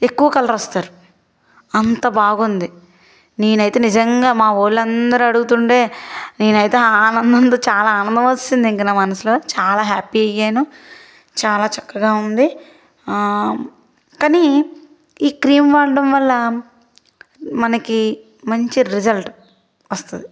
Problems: constant background noise